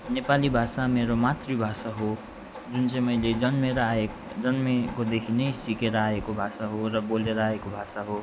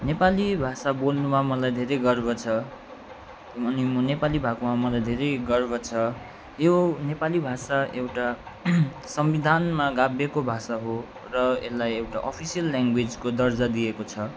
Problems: constant background noise